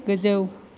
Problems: constant background noise